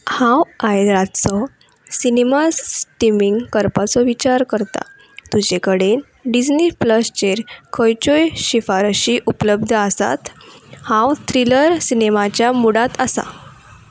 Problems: background sounds at intervals